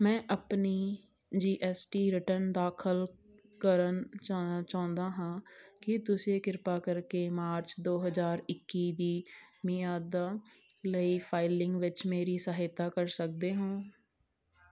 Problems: background sounds at intervals